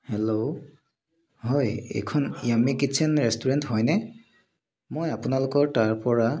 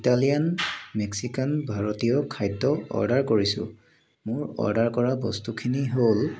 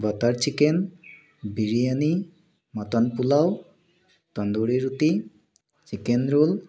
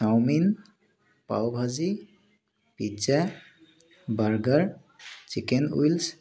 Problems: constant background noise